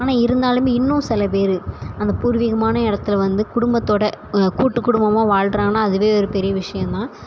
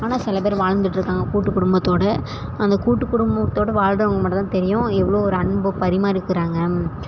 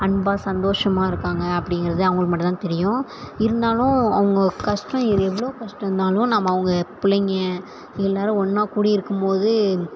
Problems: none marked